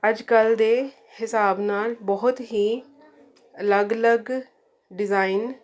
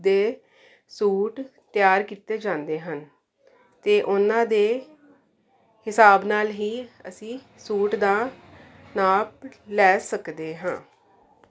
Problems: none marked